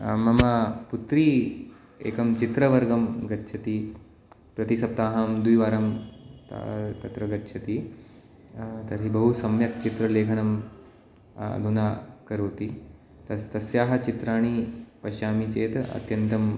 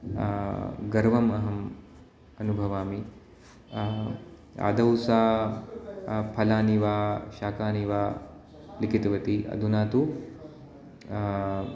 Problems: none marked